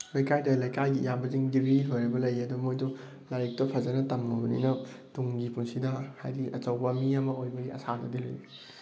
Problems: background sounds at intervals